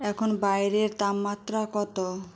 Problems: none marked